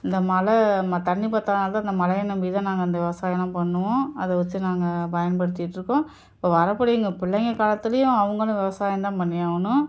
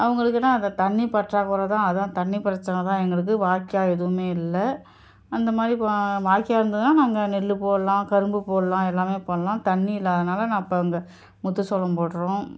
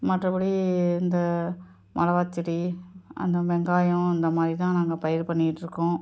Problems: none marked